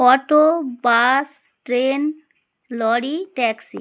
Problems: none marked